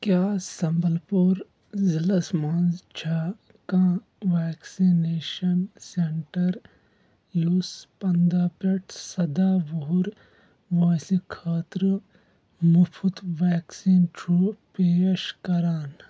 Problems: background sounds at intervals